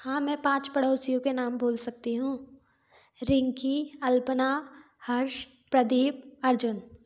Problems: background sounds at intervals